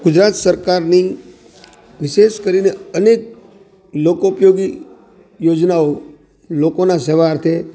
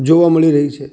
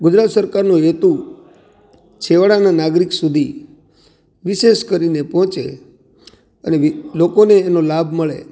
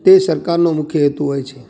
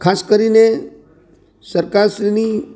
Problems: background sounds at intervals